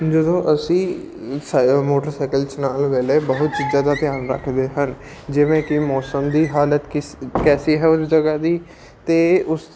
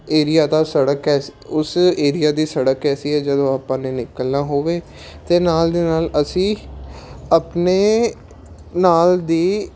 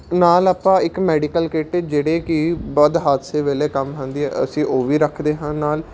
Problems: constant background noise